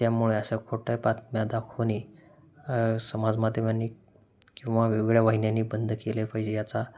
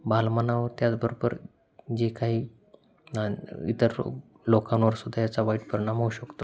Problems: constant background noise